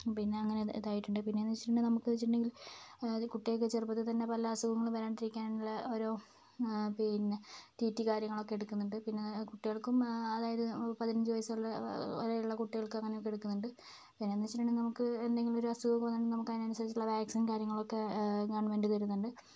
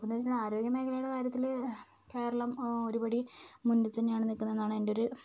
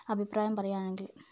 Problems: none marked